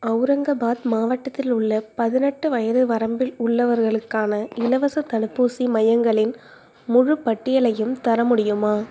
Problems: none marked